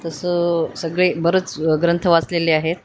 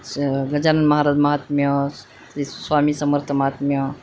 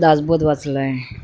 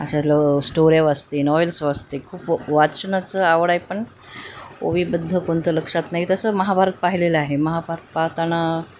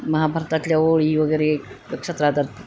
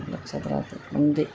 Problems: constant background noise, background conversations at intervals